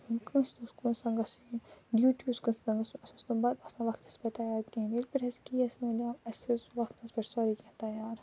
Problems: low volume